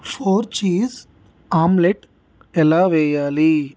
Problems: constant background noise